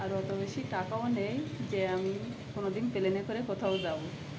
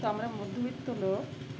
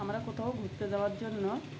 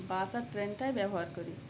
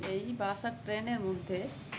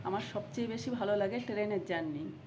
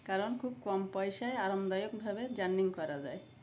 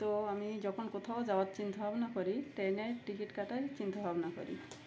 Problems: constant background noise